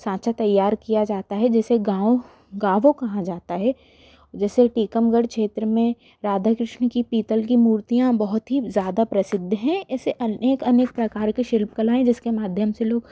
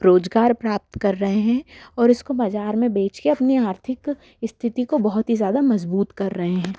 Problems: background sounds at intervals